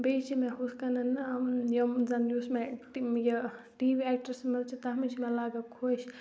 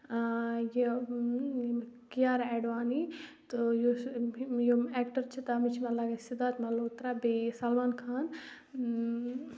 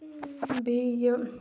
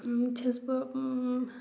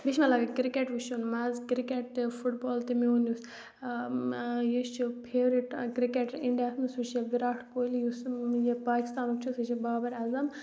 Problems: background sounds at intervals